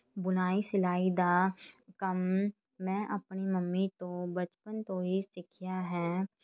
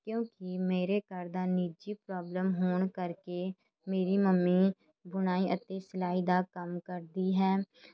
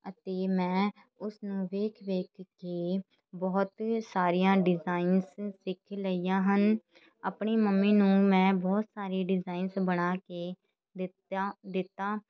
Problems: none marked